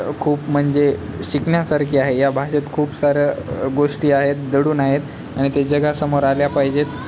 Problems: constant background noise, background conversations at intervals